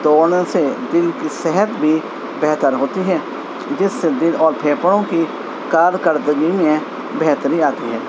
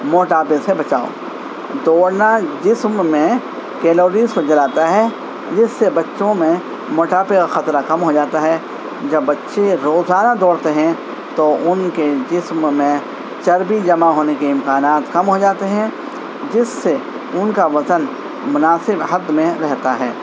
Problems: constant background noise